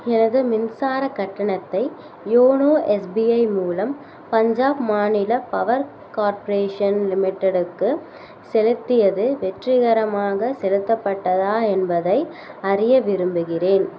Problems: none marked